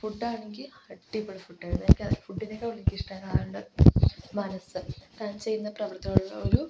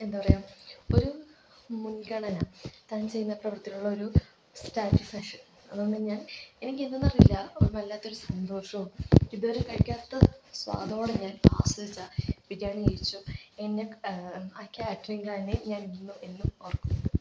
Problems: low volume